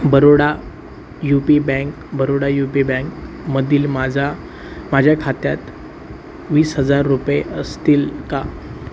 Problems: none marked